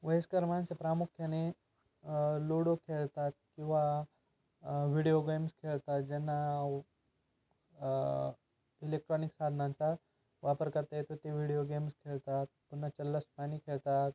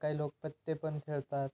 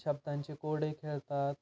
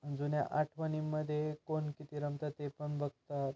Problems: constant background noise